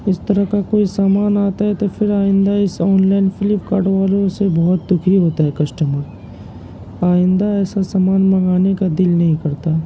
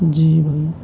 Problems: constant background noise, low volume